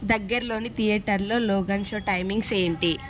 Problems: background sounds at intervals